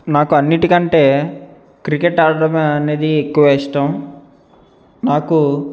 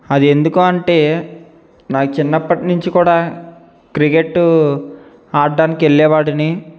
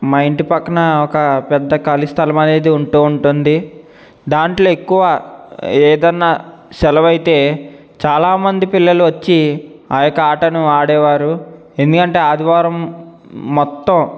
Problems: none marked